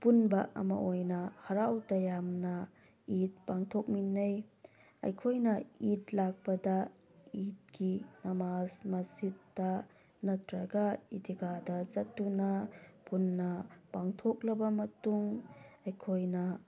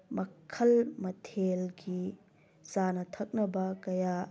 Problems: background sounds at intervals